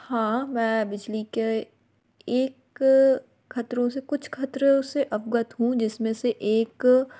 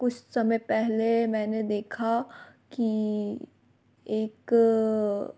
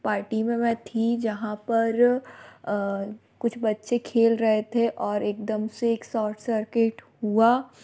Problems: constant background noise